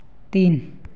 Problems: none marked